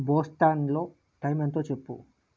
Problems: low volume